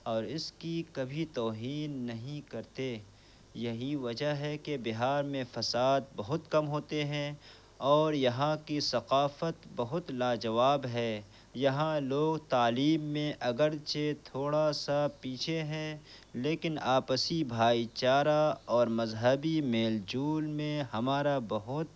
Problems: background sounds at intervals, low volume